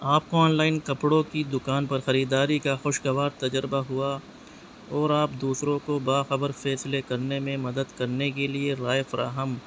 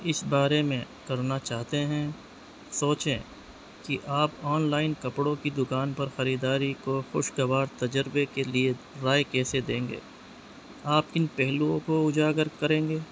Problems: constant background noise